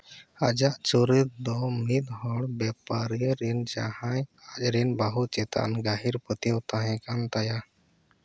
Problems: none marked